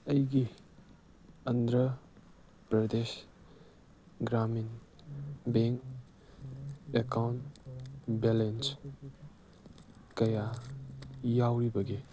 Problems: background sounds at intervals, background conversations at intervals